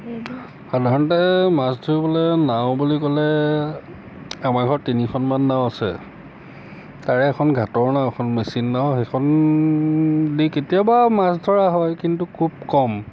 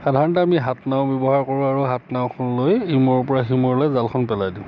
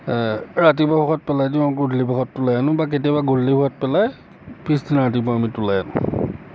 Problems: constant background noise, background conversations at intervals